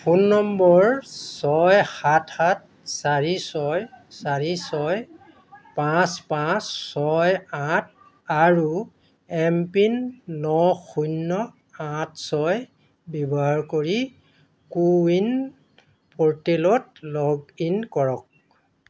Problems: constant background noise, background conversations at intervals